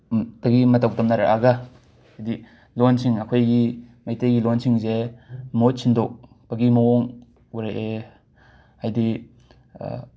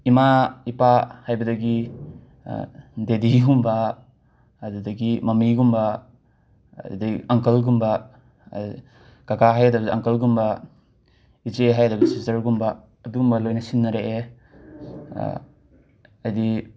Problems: background sounds at intervals